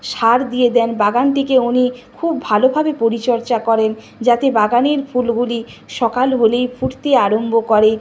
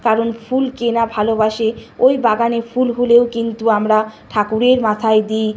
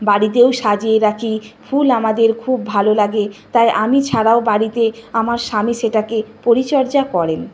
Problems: none marked